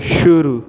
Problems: background conversations at intervals